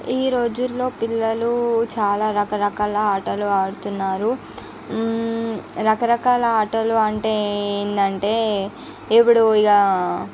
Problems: none marked